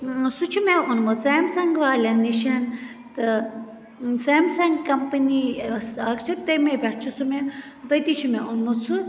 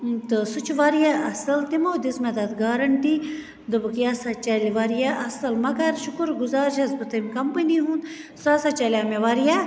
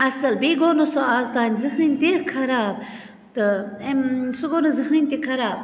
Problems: constant background noise